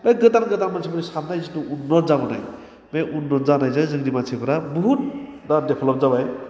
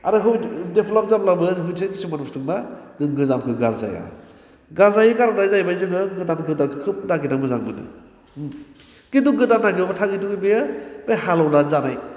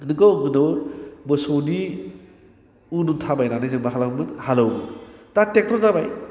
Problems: constant background noise